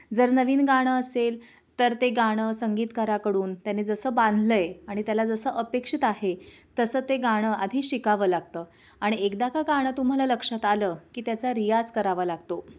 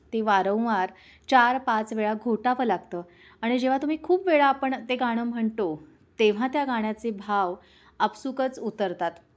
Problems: none marked